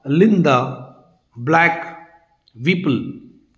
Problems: constant background noise